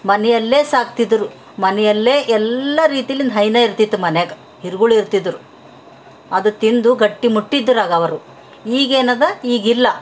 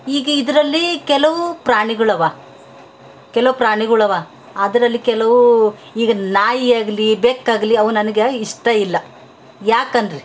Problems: none marked